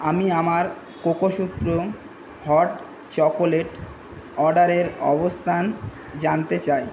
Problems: none marked